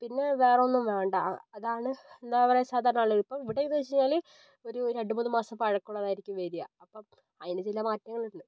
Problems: none marked